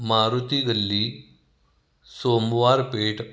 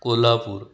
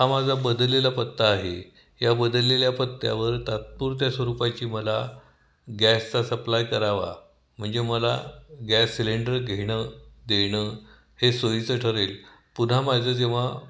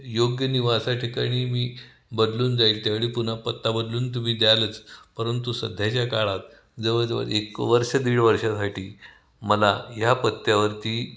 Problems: constant background noise, echo